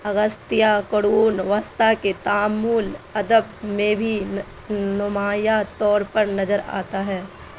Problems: constant background noise